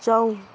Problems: constant background noise